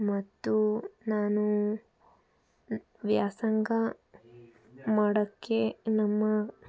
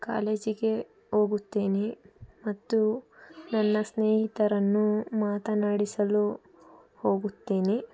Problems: background conversations at intervals